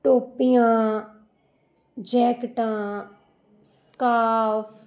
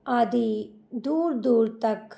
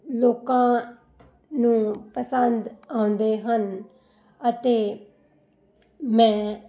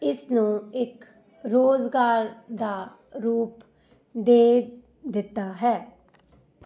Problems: constant background noise